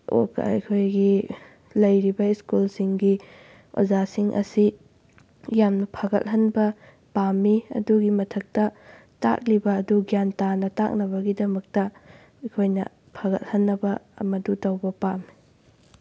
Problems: none marked